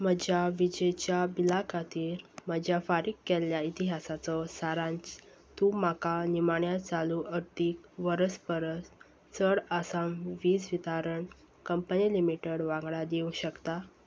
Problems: none marked